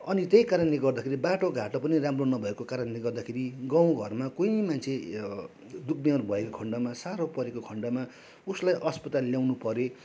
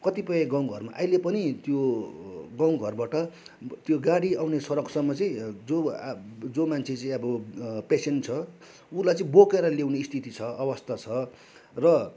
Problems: none marked